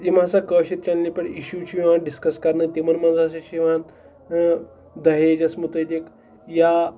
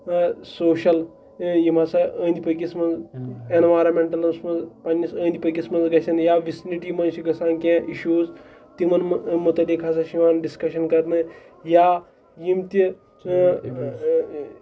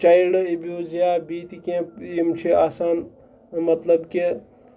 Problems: background sounds at intervals, background conversations at intervals